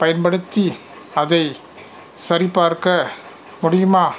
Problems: constant background noise